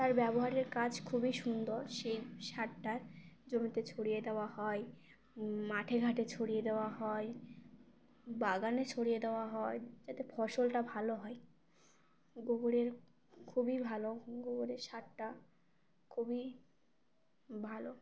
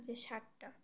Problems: none marked